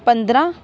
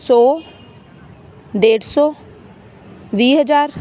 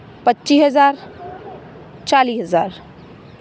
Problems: constant background noise, background conversations at intervals